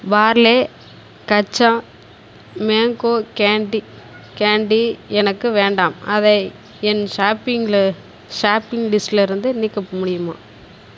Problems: constant background noise